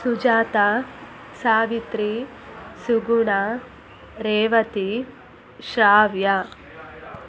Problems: constant background noise, background conversations at intervals